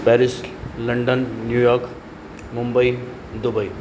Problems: constant background noise, echo